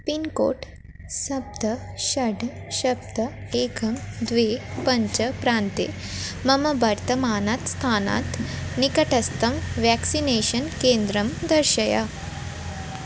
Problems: constant background noise